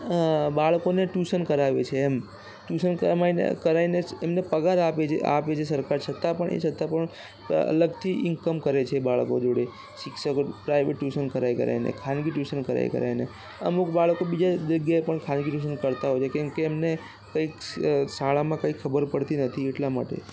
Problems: constant background noise